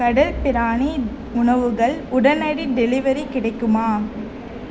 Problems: none marked